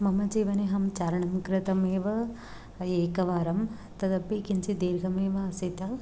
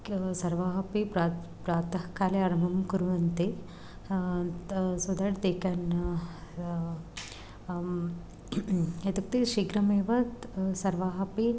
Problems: none marked